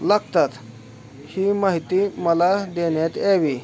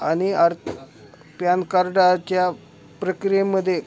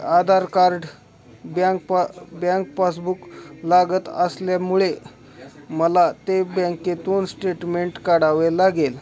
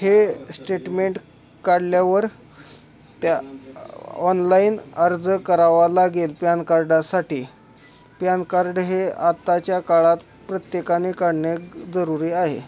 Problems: continuous background conversations